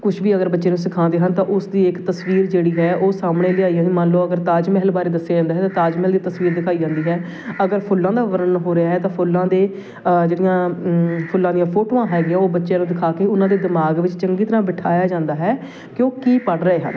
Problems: constant background noise